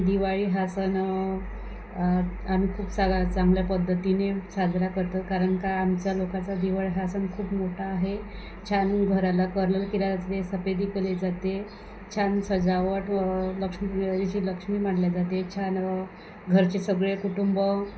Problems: constant background noise